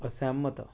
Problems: low volume